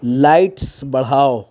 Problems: none marked